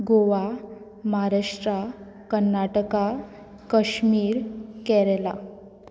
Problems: none marked